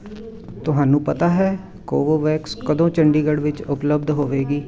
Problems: continuous background conversations